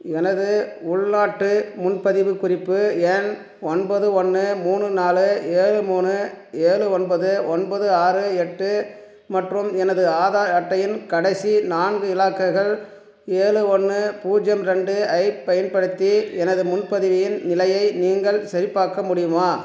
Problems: background sounds at intervals